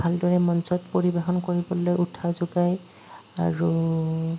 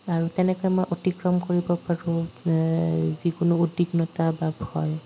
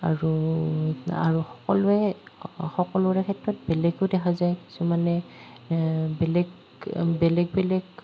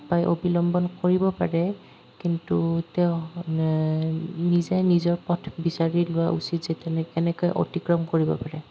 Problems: none marked